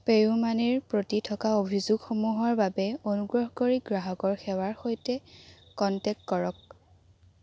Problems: constant background noise